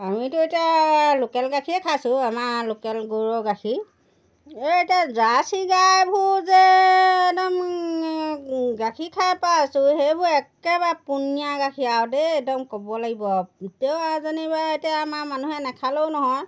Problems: background sounds at intervals